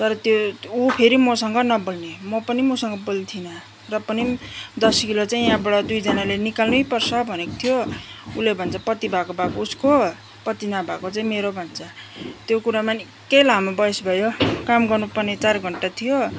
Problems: constant background noise, background conversations at intervals